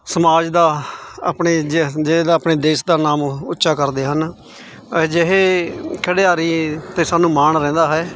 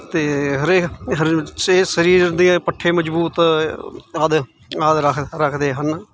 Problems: none marked